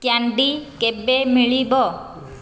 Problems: none marked